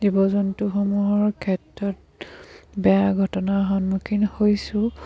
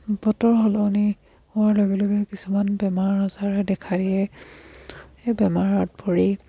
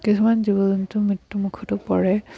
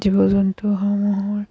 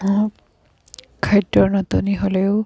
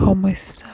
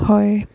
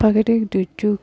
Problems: background sounds at intervals